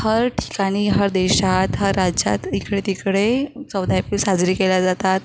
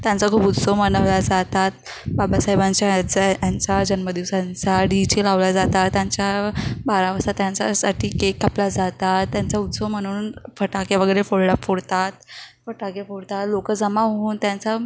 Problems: none marked